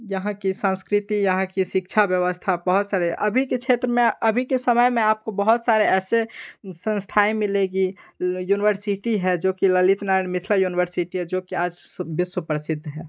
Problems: background sounds at intervals